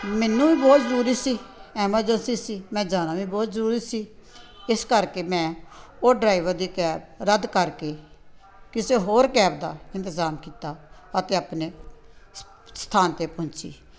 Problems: constant background noise